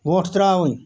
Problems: none marked